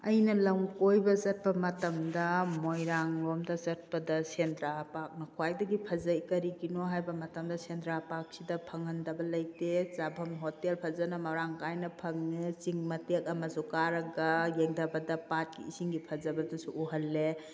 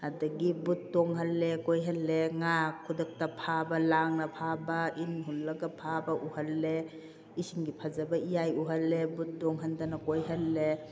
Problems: background conversations at intervals